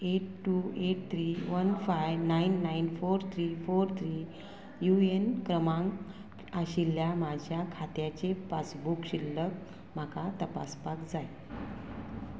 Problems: constant background noise